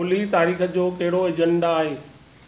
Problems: none marked